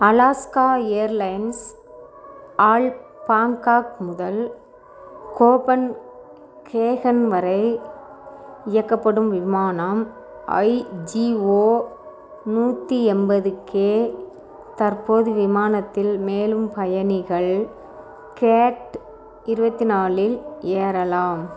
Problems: continuous background conversations